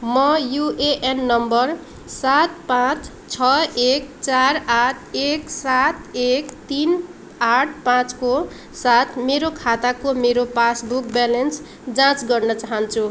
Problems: none marked